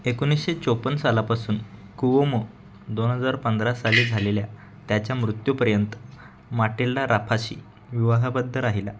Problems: constant background noise